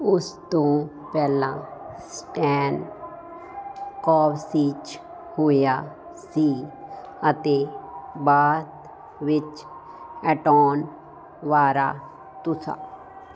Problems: none marked